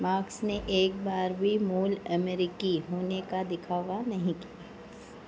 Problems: low volume